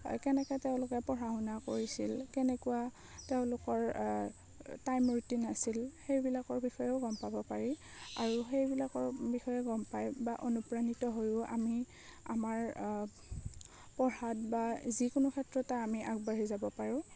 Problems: none marked